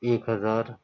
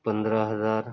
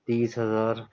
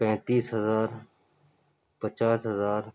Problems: low volume